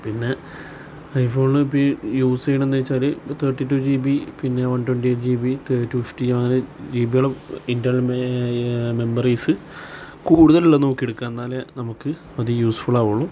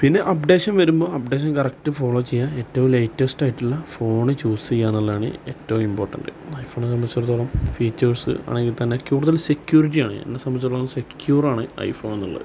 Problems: background sounds at intervals